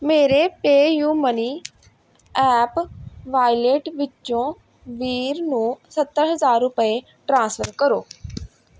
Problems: background sounds at intervals